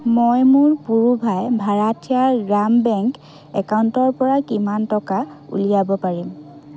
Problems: background conversations at intervals